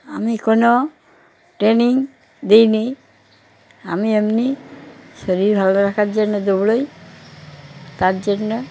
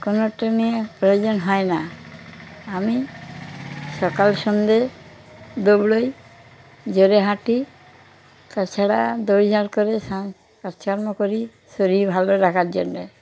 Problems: background sounds at intervals, background conversations at intervals